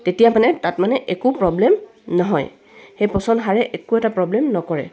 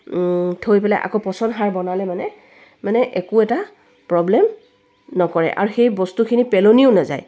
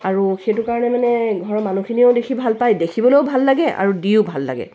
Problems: none marked